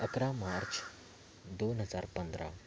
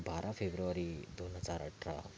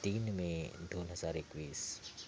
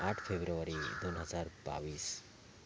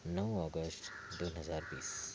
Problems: constant background noise, background conversations at intervals, low volume